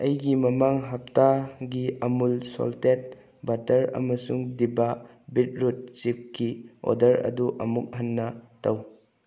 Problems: none marked